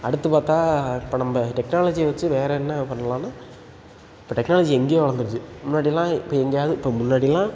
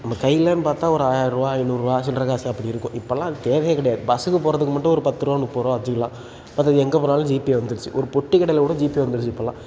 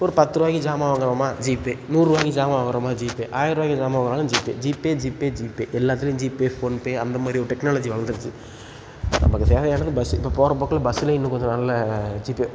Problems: background sounds at intervals